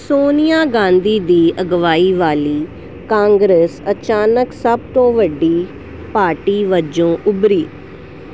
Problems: none marked